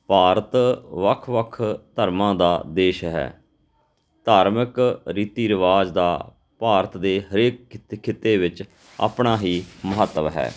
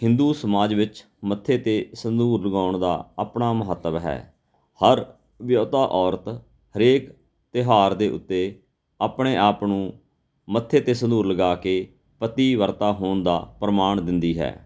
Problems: none marked